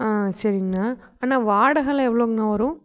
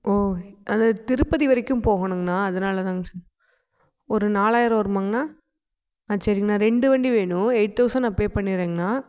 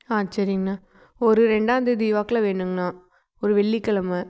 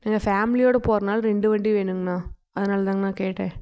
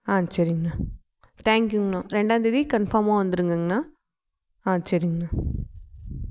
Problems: none marked